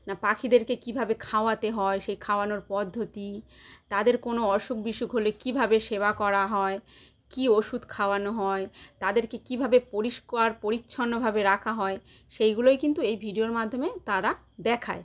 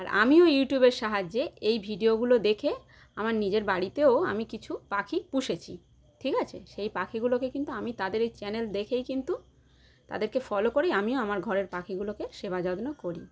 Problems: none marked